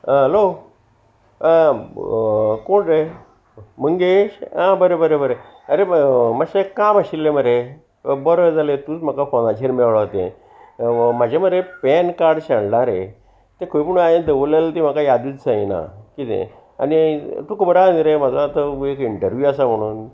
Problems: constant background noise